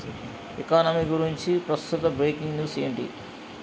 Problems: constant background noise